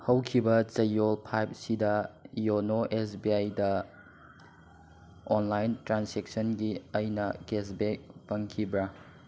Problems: none marked